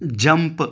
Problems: none marked